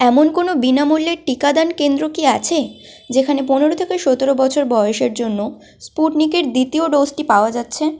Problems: none marked